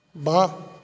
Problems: background sounds at intervals